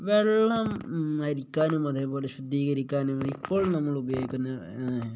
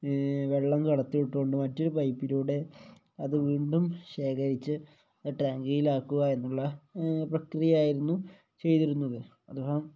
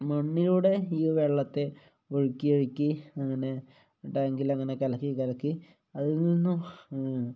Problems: low volume